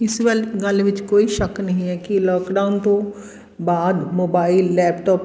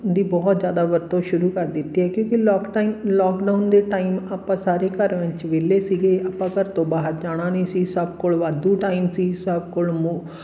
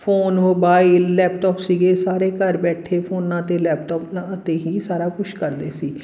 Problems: none marked